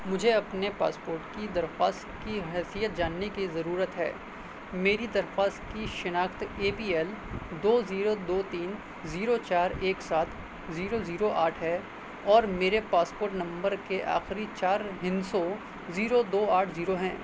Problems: constant background noise, low volume